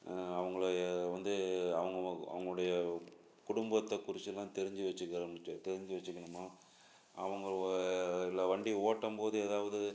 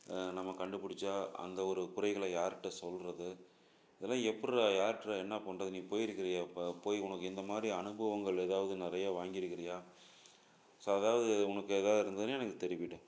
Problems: none marked